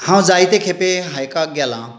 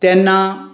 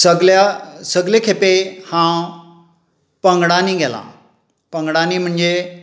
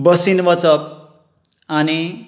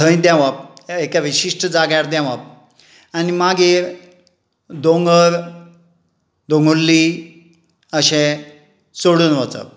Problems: none marked